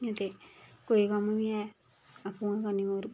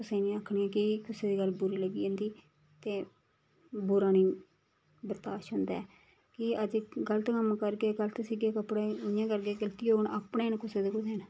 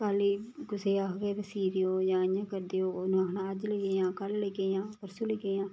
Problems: background sounds at intervals